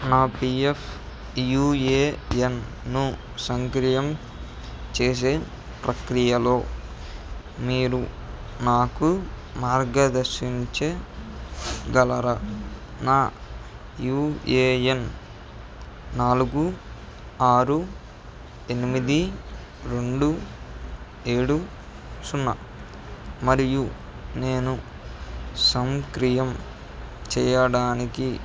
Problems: background sounds at intervals